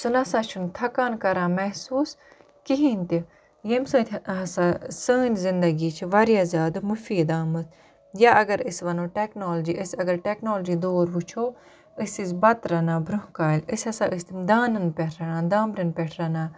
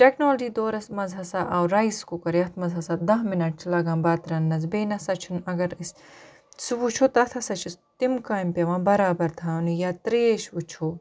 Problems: none marked